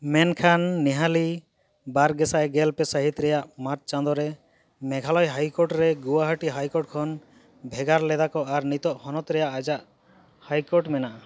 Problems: none marked